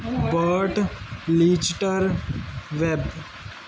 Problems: none marked